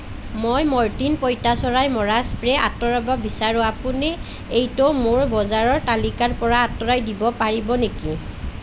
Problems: none marked